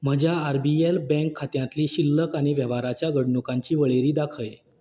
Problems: background sounds at intervals